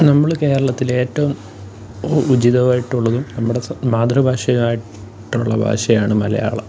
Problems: background sounds at intervals